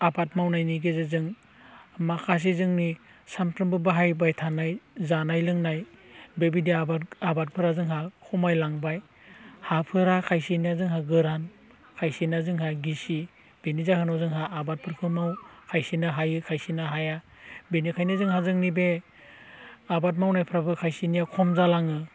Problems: low volume